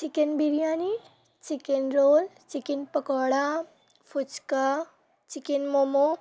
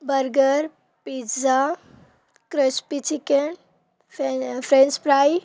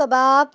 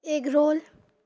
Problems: none marked